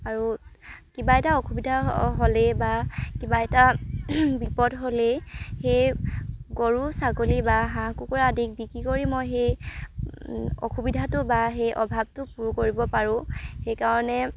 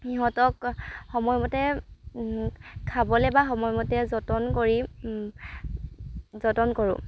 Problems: background sounds at intervals